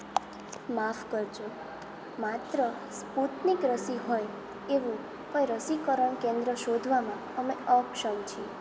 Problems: constant background noise, background conversations at intervals